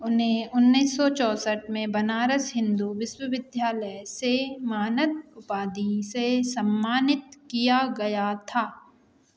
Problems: none marked